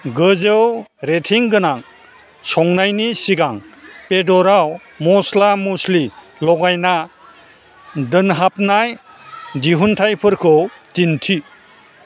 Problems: constant background noise